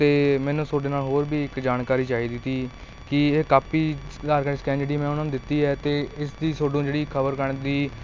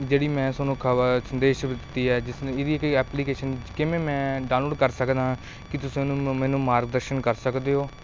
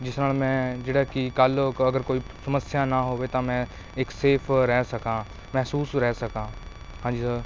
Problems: constant background noise